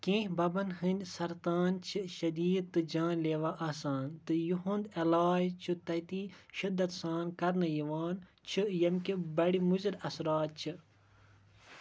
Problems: background sounds at intervals